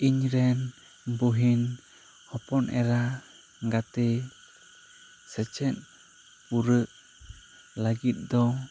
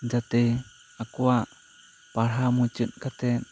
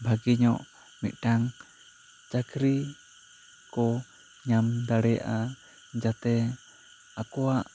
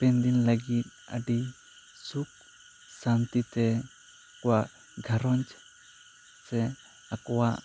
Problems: constant background noise